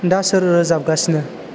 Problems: constant background noise